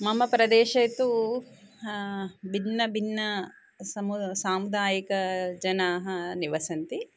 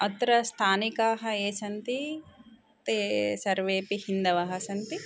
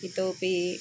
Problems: background conversations at intervals